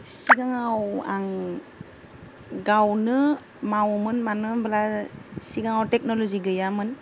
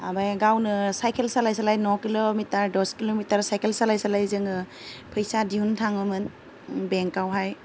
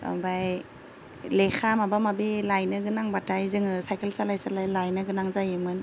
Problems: low volume